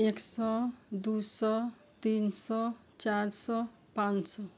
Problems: background sounds at intervals